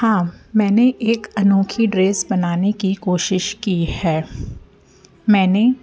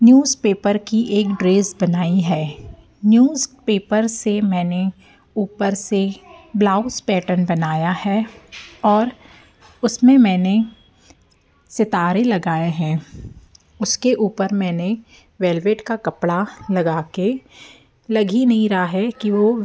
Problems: constant background noise